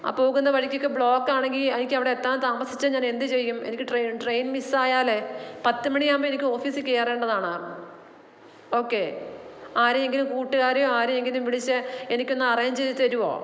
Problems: echo